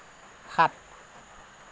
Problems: constant background noise